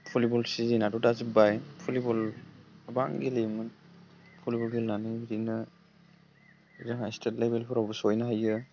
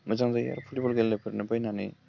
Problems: low volume